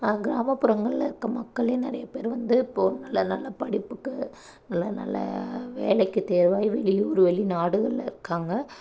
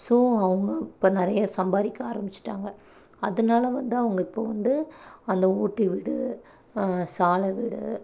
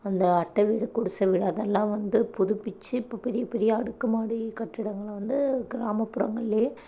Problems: none marked